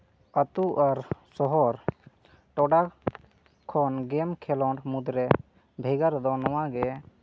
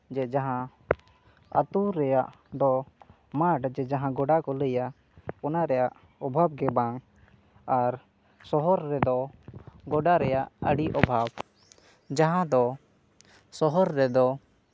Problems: none marked